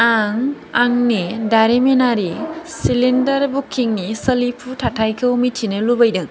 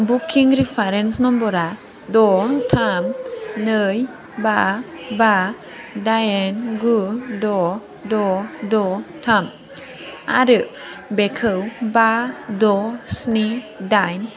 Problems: constant background noise